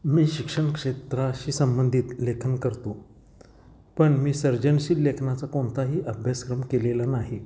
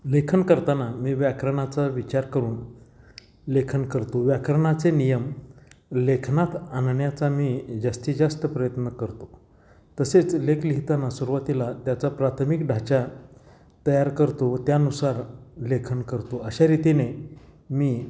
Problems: background sounds at intervals